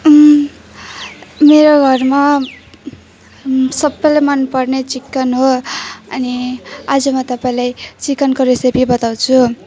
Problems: none marked